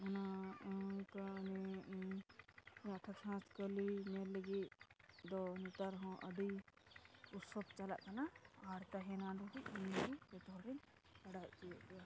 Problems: constant background noise, low volume